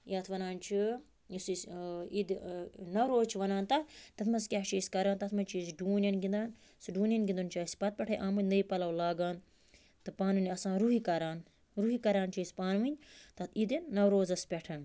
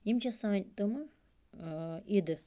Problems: constant background noise